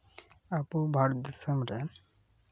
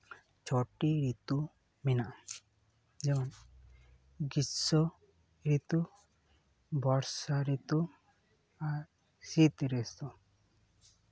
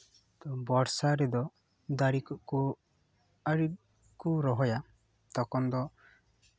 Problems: background sounds at intervals